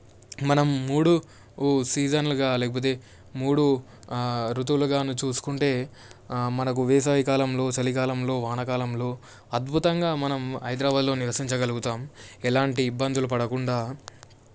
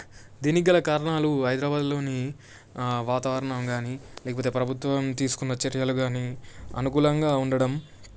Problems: none marked